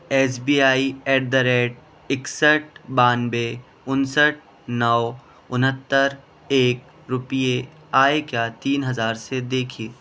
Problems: constant background noise